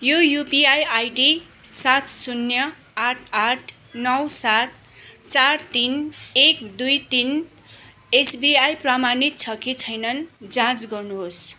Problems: background sounds at intervals